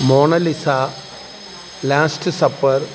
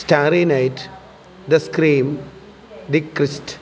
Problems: constant background noise